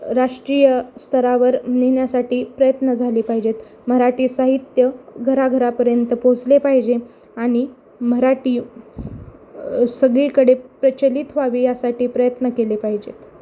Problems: constant background noise, background conversations at intervals